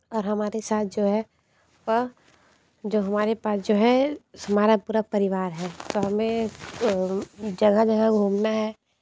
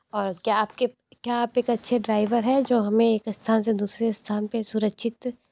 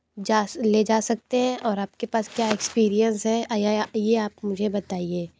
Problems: low volume